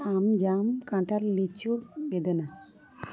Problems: constant background noise